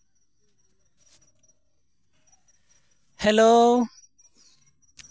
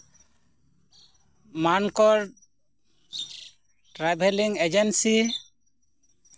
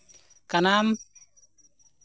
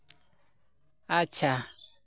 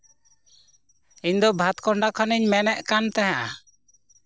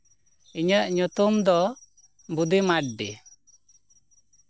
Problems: background sounds at intervals